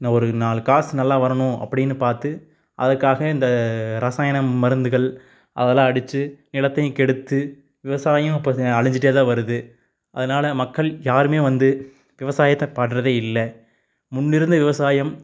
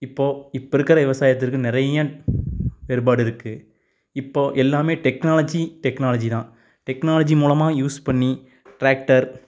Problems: none marked